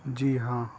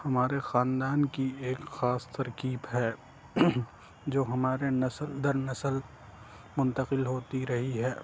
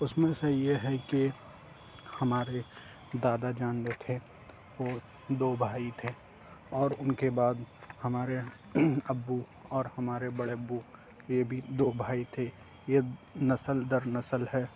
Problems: constant background noise